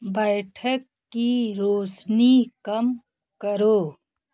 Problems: background sounds at intervals